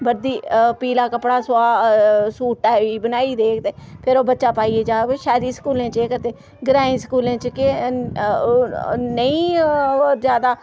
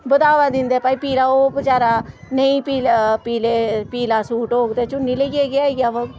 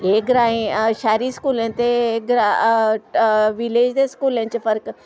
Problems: constant background noise